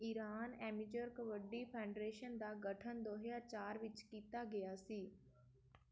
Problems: background sounds at intervals